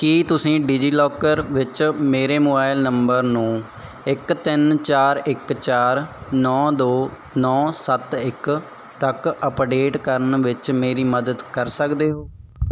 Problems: background sounds at intervals